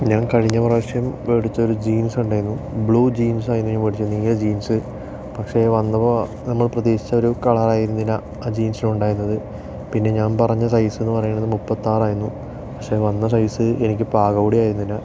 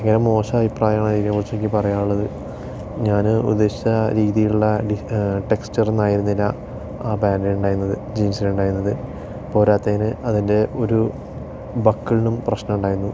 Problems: none marked